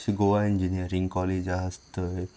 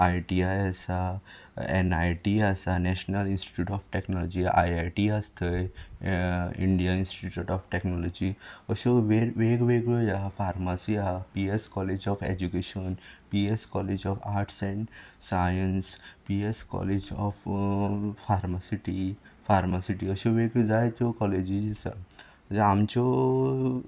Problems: background sounds at intervals